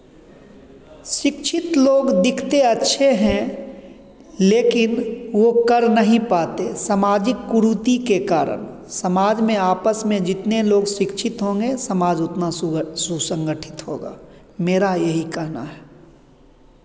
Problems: background sounds at intervals